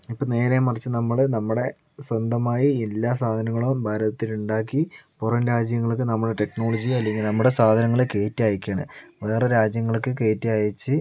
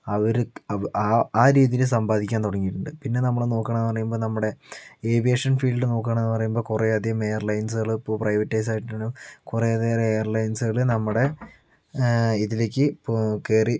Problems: none marked